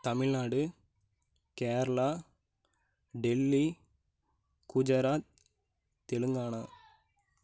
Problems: low volume